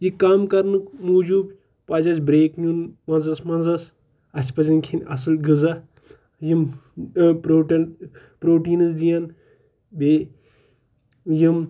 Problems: background sounds at intervals